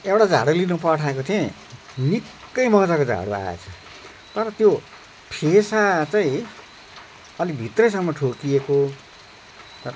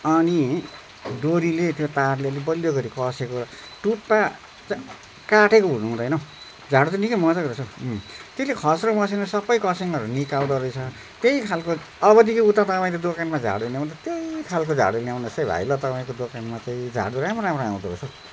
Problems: none marked